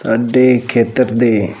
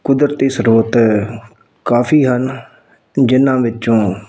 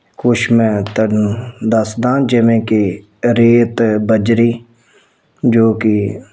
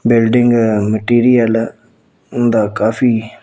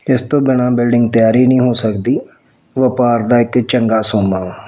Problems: none marked